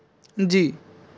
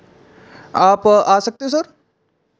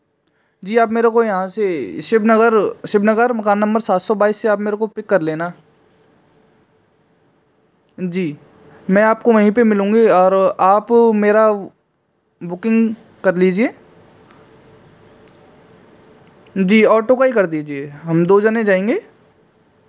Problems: background sounds at intervals